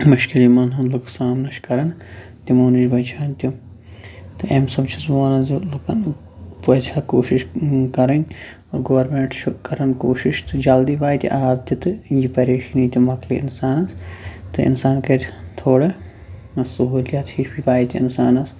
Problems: none marked